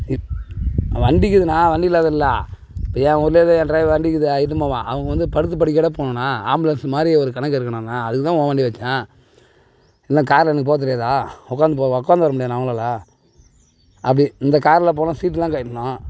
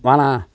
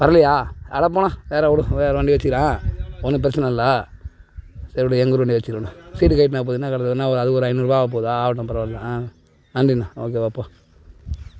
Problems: none marked